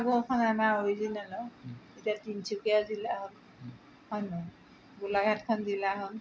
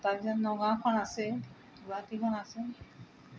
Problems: background sounds at intervals, background conversations at intervals